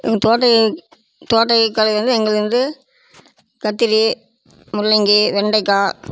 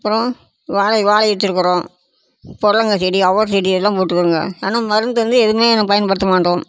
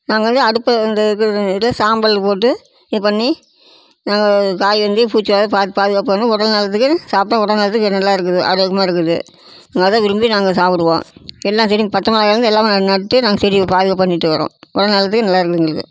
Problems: constant background noise